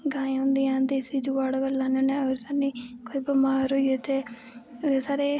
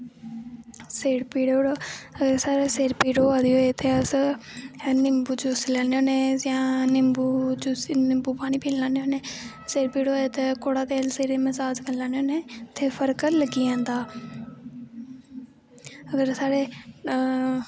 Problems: constant background noise